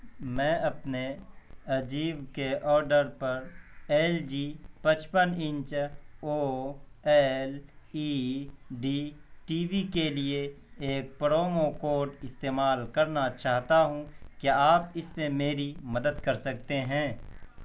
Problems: background sounds at intervals